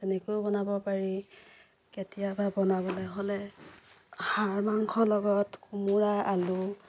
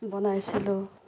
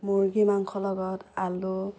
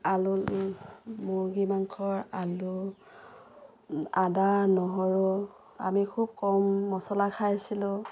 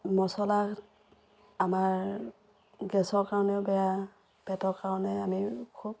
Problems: constant background noise